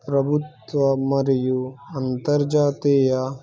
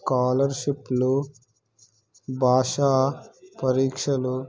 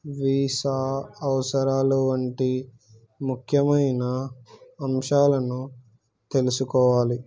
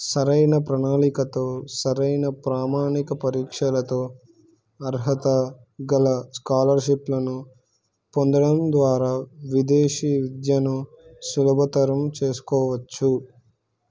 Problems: none marked